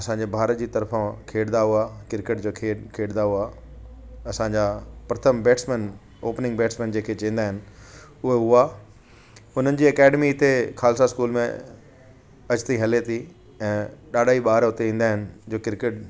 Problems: constant background noise